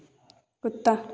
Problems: none marked